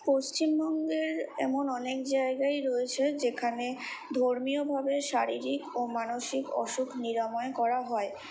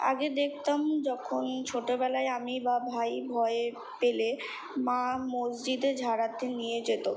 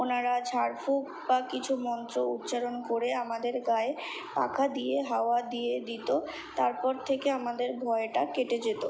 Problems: constant background noise